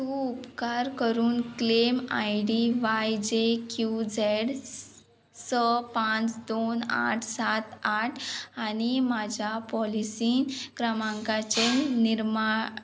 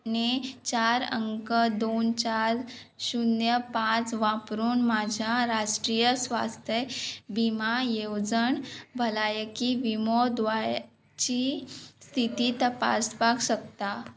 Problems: constant background noise